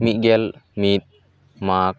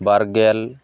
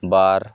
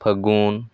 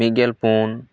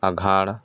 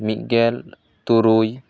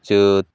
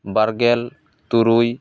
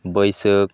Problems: none marked